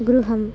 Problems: constant background noise